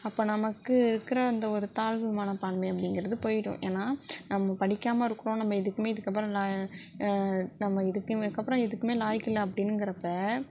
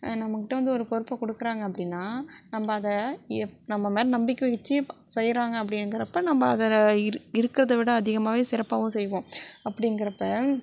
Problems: none marked